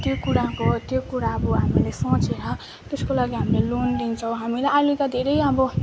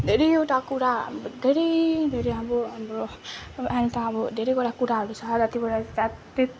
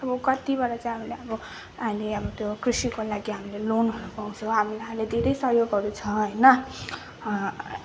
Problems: constant background noise, continuous background conversations